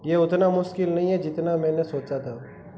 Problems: constant background noise